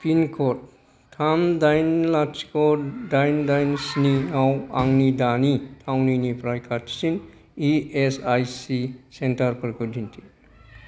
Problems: none marked